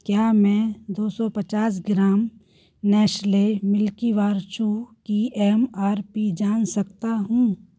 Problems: none marked